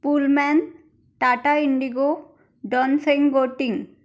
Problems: none marked